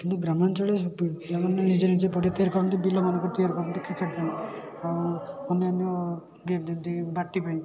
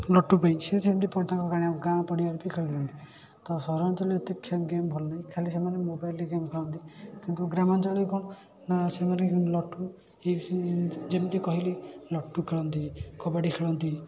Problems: constant background noise, continuous background conversations